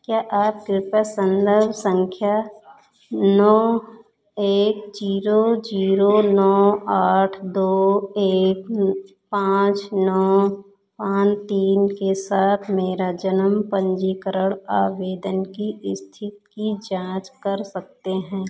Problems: background sounds at intervals